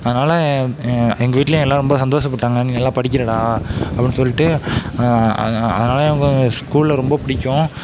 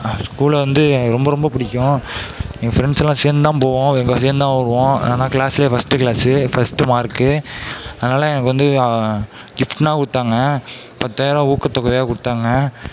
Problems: none marked